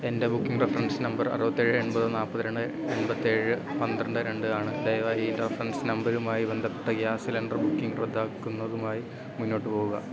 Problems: constant background noise, background conversations at intervals